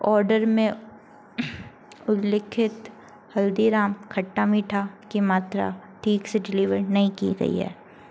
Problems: constant background noise